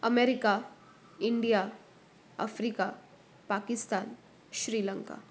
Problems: constant background noise